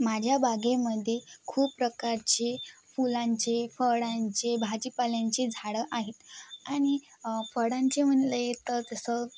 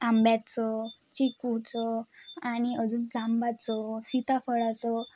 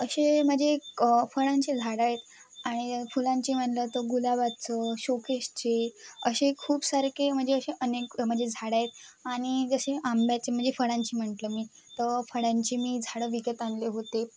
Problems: none marked